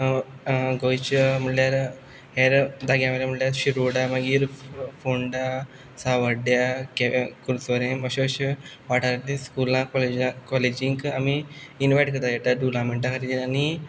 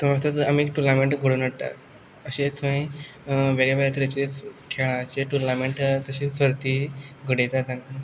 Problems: background sounds at intervals